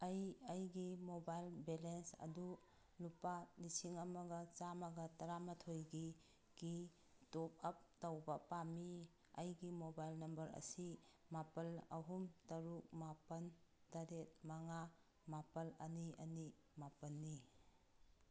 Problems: background sounds at intervals